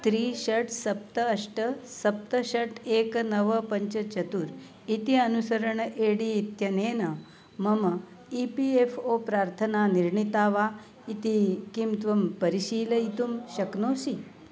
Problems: constant background noise, background conversations at intervals